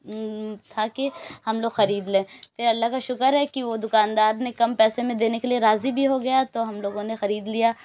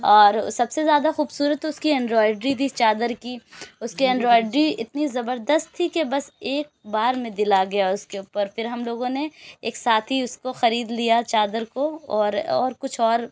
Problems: background sounds at intervals